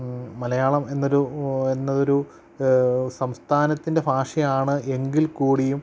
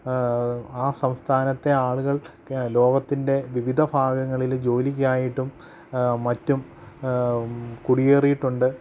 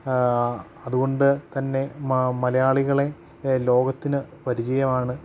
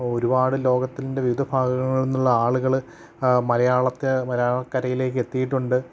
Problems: low volume